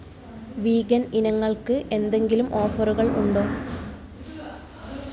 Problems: constant background noise, low volume